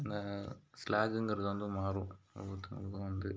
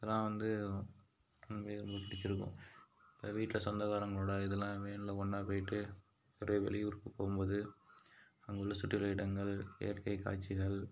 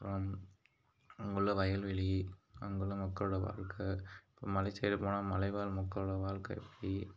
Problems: none marked